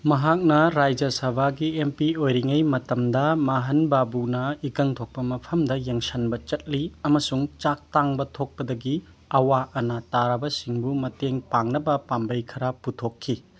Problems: none marked